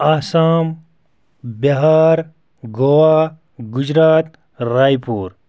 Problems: background sounds at intervals